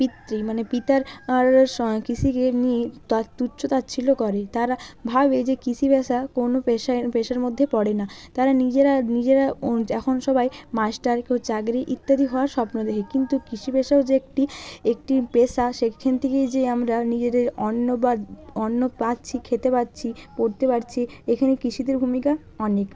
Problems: none marked